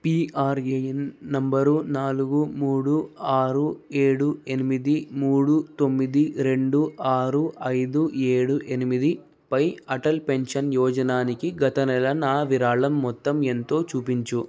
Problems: none marked